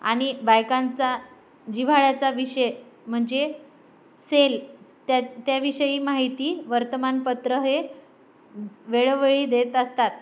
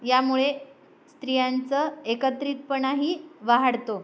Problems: none marked